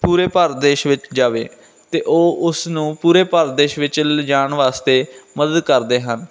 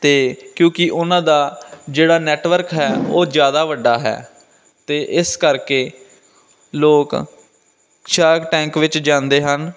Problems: constant background noise